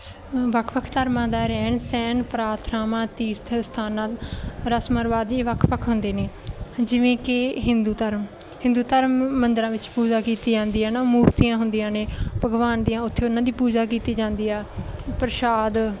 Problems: background sounds at intervals